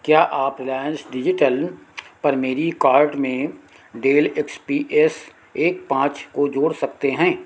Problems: constant background noise